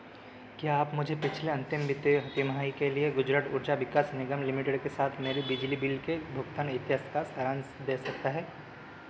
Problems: constant background noise